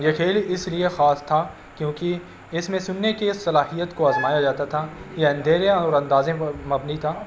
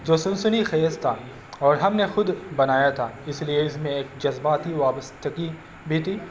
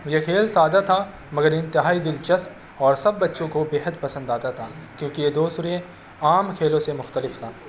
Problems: constant background noise